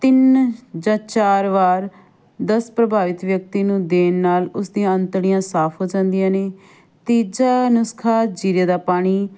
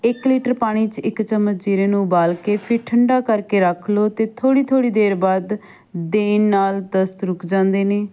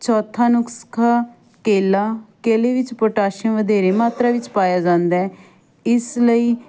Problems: background sounds at intervals, background conversations at intervals